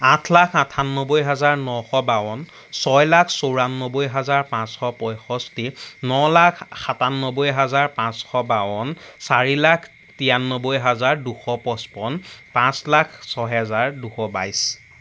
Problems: constant background noise